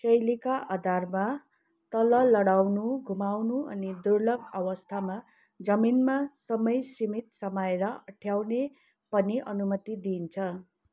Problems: background conversations at intervals